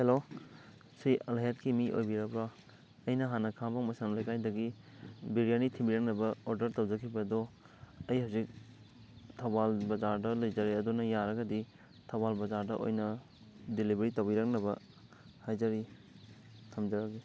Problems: constant background noise